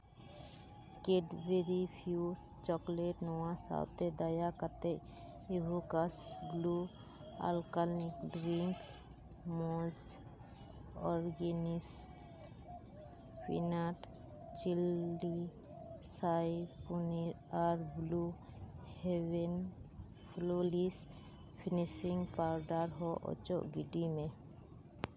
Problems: background sounds at intervals